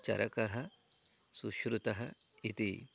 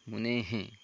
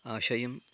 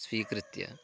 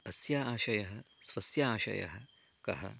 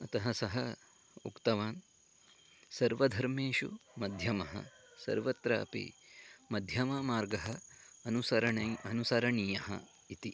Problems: none marked